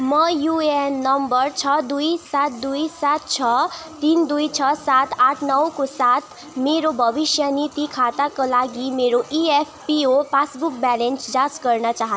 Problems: constant background noise